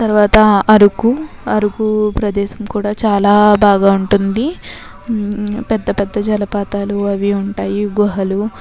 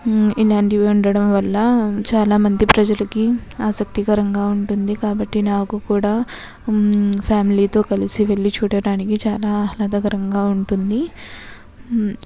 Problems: background sounds at intervals, continuous background conversations